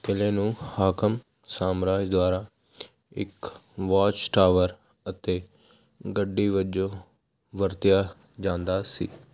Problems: constant background noise